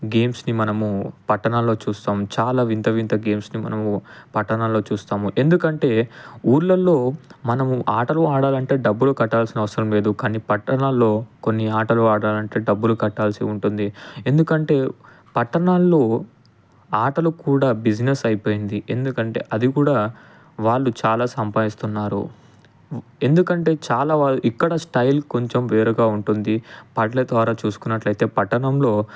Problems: none marked